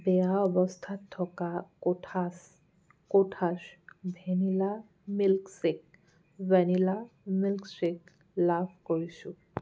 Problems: background sounds at intervals